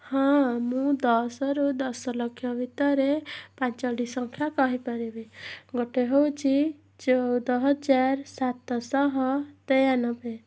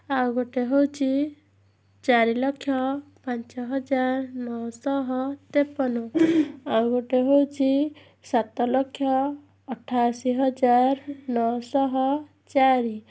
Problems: background sounds at intervals